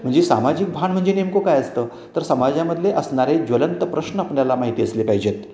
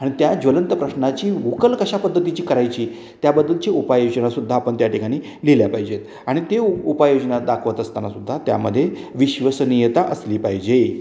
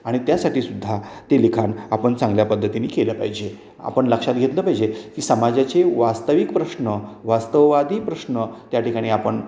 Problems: none marked